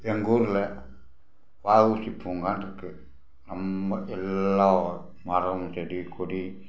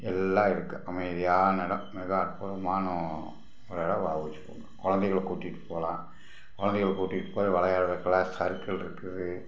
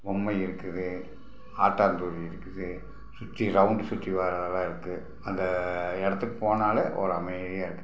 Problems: background sounds at intervals